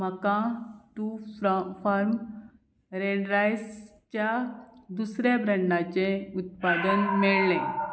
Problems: background sounds at intervals